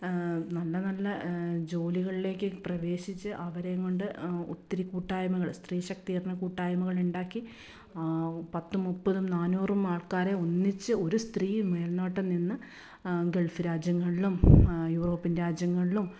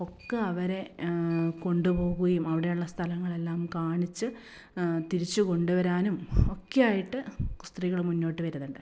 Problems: none marked